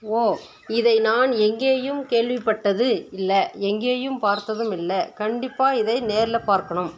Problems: constant background noise